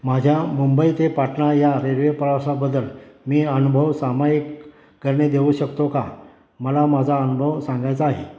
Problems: constant background noise